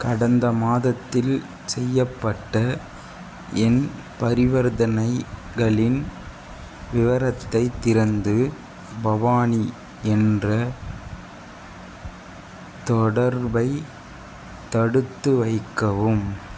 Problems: constant background noise